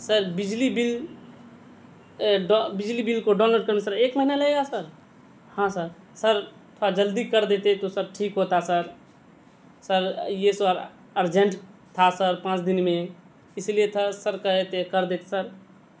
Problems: constant background noise